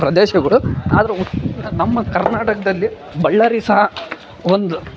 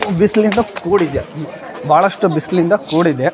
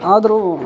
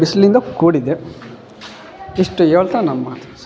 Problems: background conversations at intervals